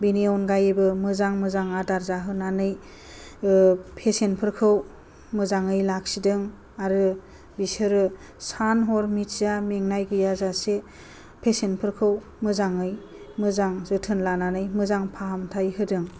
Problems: low volume